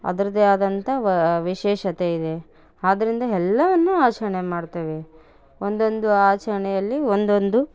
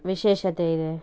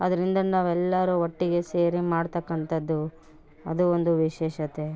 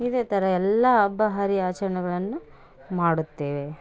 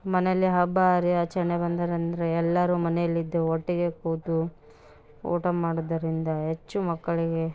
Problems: none marked